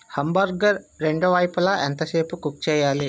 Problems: background sounds at intervals